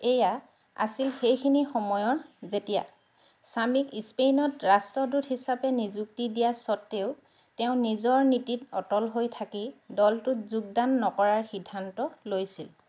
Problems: none marked